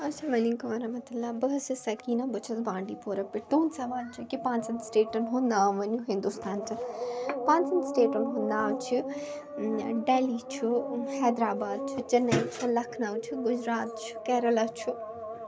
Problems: continuous background conversations